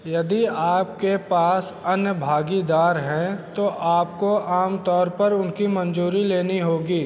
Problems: constant background noise